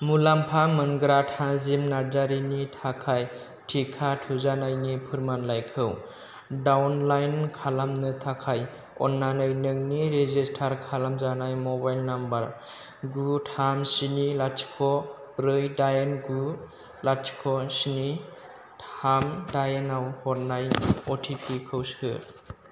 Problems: none marked